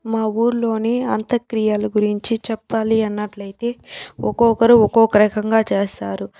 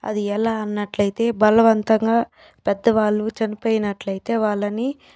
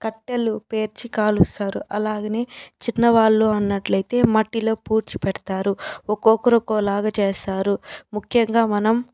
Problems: background sounds at intervals